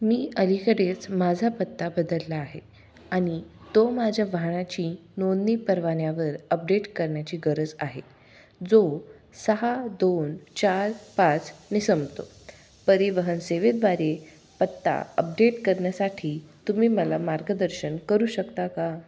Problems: background sounds at intervals